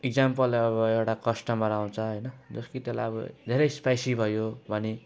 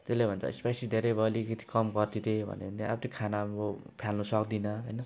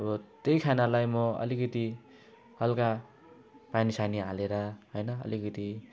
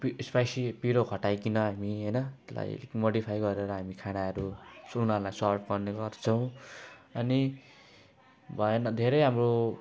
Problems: none marked